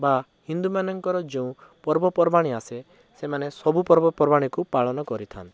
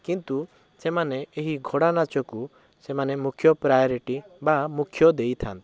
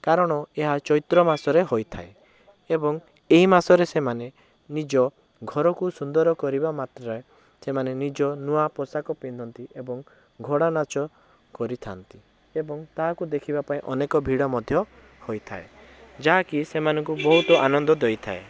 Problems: background sounds at intervals